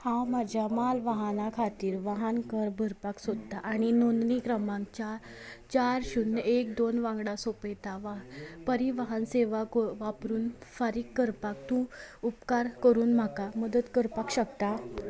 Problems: none marked